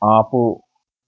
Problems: none marked